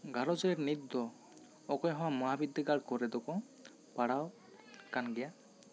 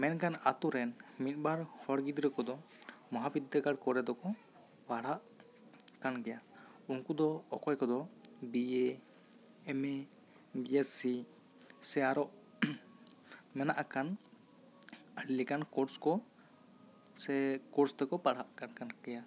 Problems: constant background noise, background conversations at intervals